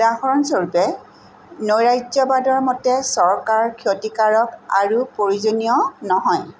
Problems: constant background noise